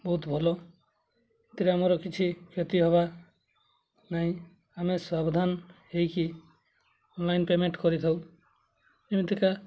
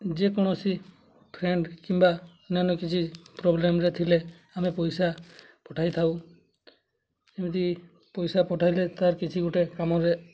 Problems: low volume